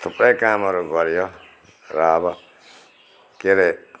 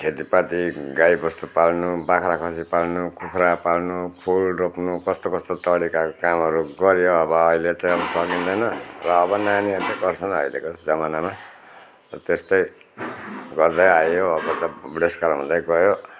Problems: none marked